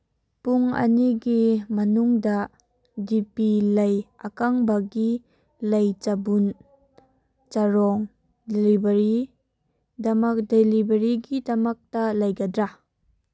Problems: background sounds at intervals